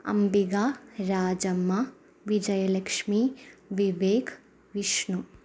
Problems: low volume